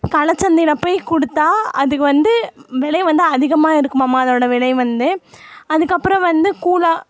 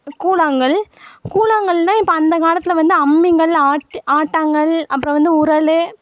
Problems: none marked